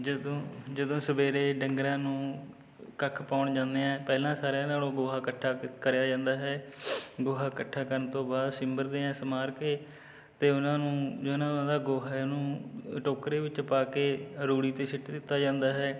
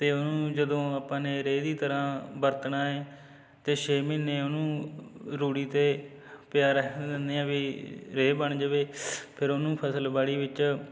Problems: background conversations at intervals